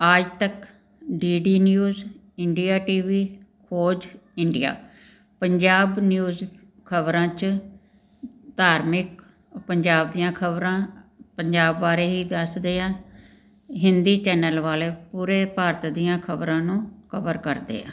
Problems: background sounds at intervals